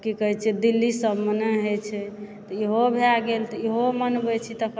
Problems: background sounds at intervals, background conversations at intervals